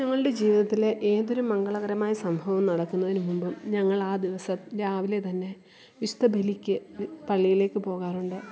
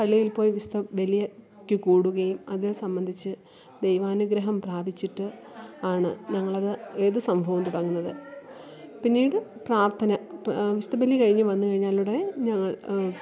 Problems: background sounds at intervals